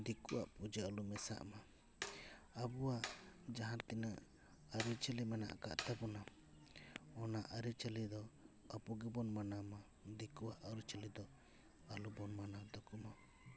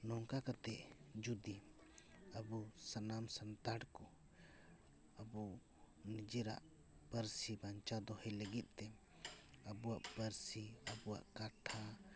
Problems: constant background noise